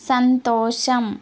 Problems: constant background noise